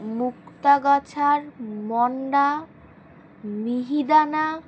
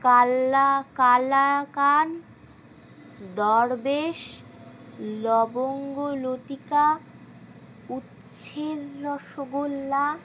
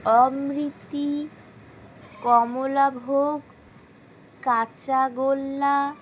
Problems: constant background noise